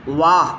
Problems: constant background noise